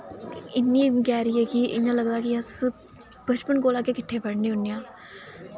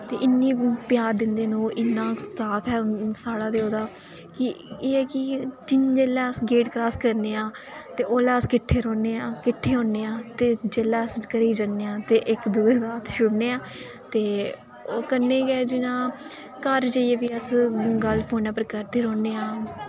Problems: constant background noise